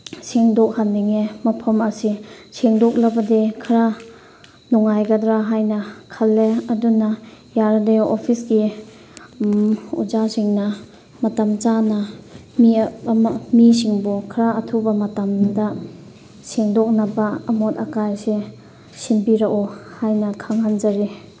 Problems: none marked